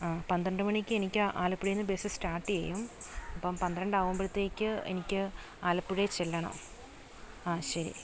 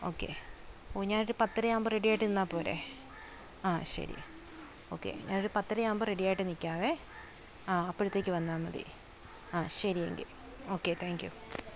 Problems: background sounds at intervals